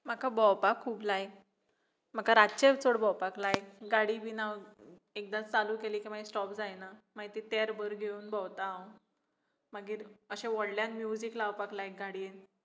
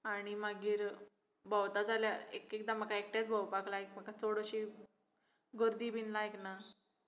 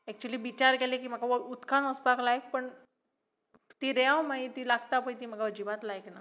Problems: background sounds at intervals